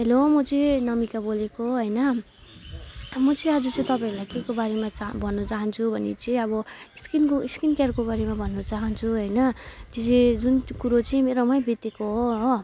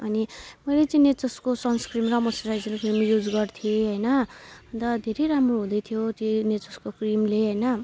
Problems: background sounds at intervals